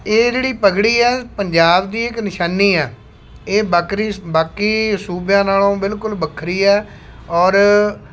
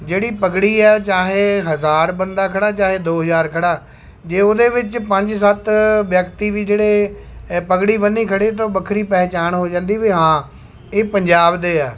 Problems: constant background noise